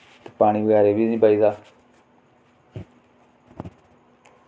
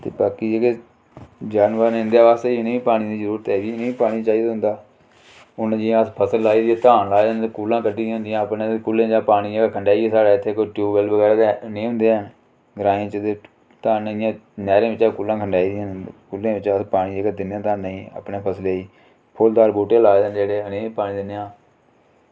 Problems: low volume